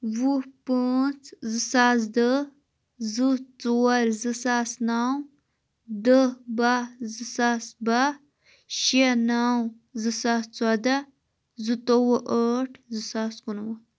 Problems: none marked